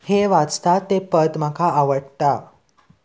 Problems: constant background noise